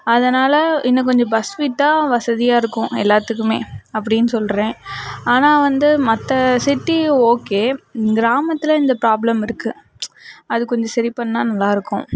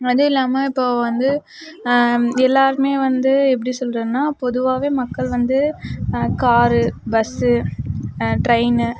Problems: background conversations at intervals